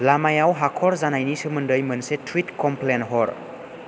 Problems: none marked